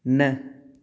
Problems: none marked